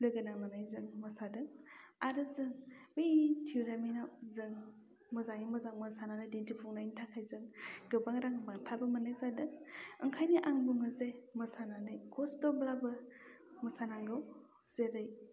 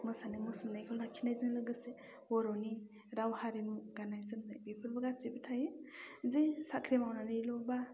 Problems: low volume